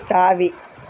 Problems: constant background noise